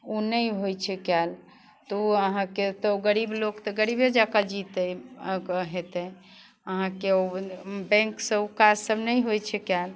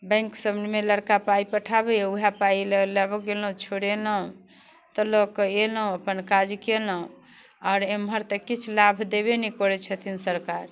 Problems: none marked